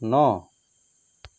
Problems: none marked